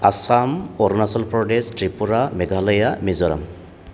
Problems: constant background noise